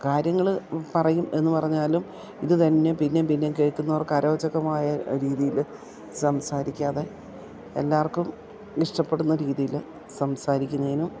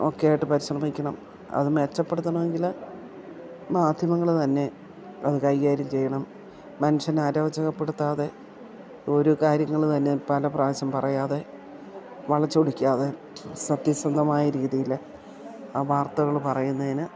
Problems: none marked